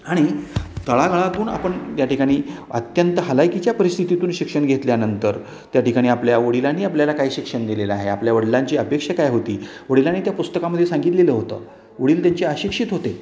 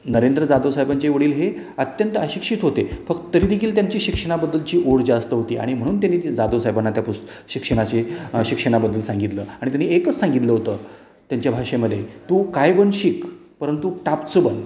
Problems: none marked